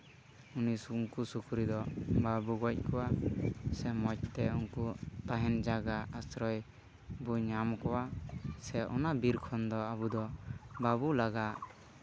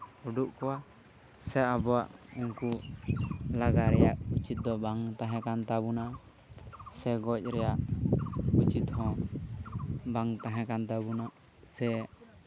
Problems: background sounds at intervals